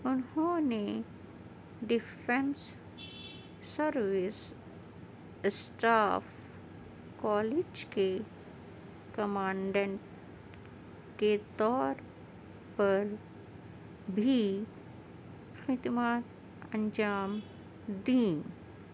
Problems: none marked